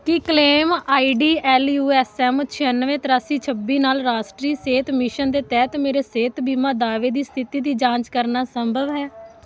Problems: none marked